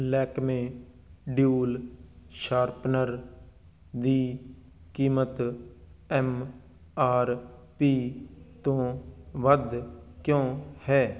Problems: continuous background conversations